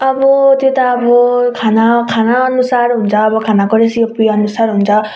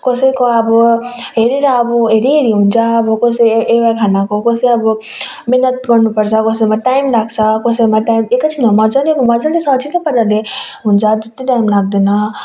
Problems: background sounds at intervals